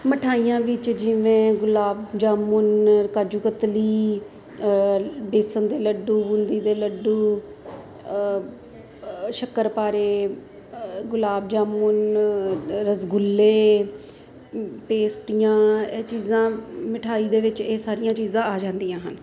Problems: constant background noise